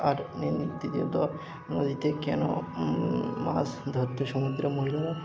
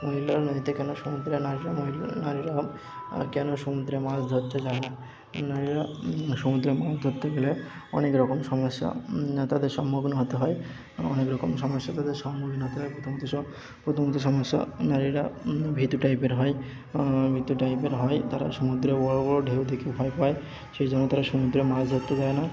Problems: background sounds at intervals, continuous background conversations